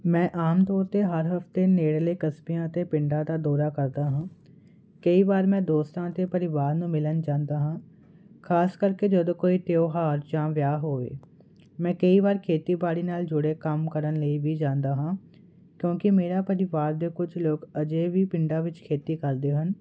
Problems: none marked